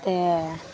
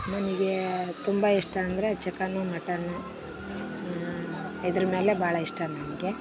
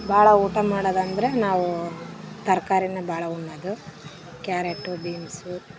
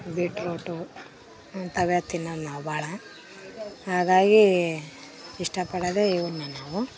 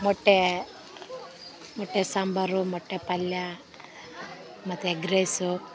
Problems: background sounds at intervals